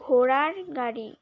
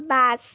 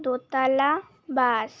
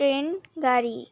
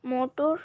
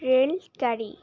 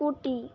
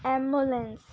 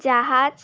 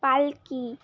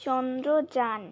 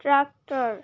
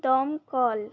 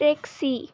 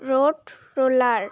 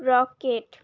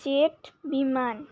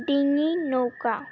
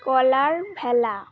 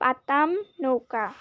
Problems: constant background noise